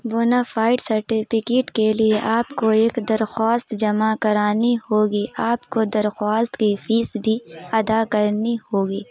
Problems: constant background noise